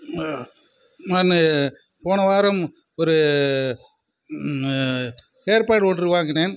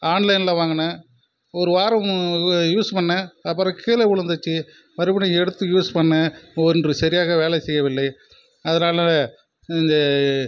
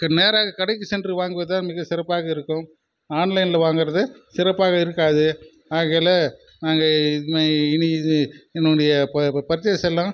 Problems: constant background noise